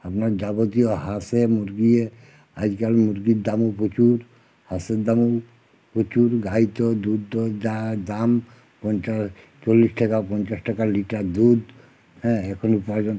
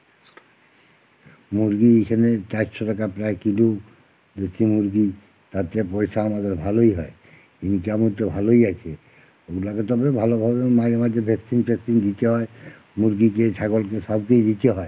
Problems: constant background noise